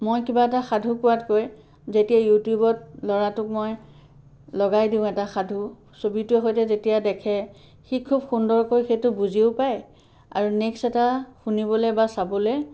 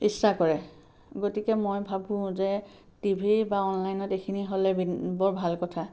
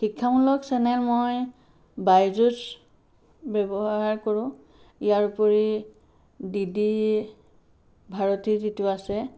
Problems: background sounds at intervals